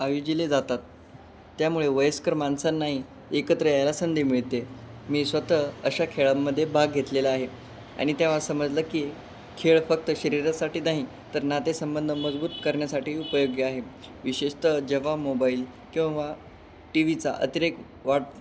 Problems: none marked